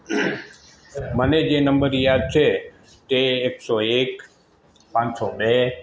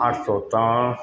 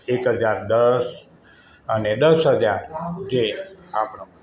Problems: constant background noise